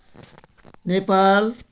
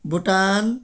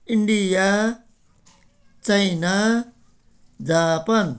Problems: none marked